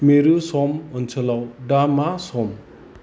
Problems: none marked